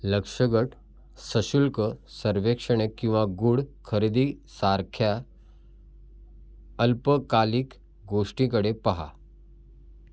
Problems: none marked